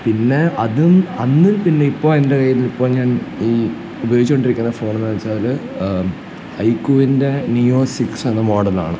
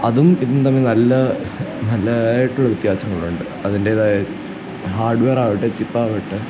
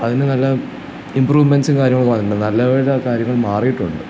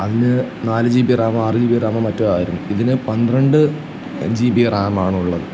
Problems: none marked